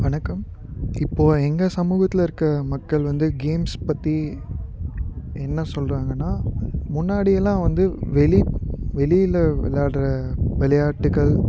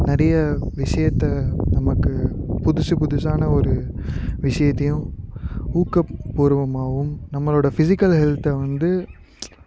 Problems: background sounds at intervals